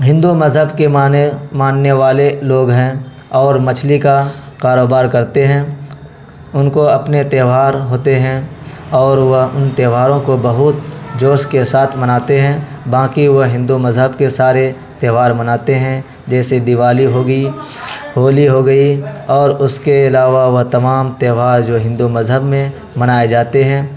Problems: constant background noise